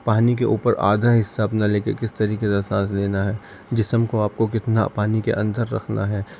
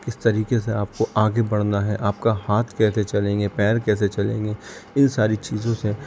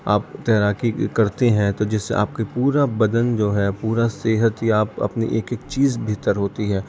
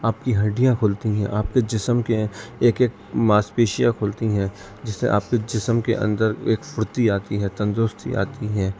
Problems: constant background noise